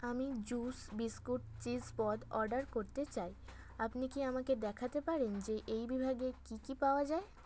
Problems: none marked